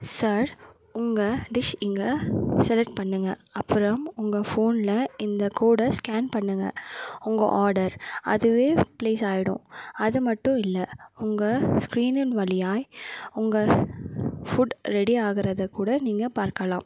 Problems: none marked